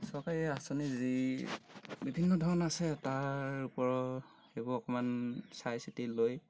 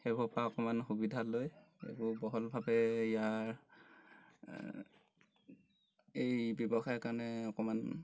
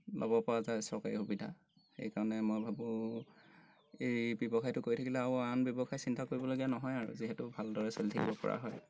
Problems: background sounds at intervals